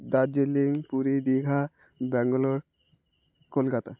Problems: constant background noise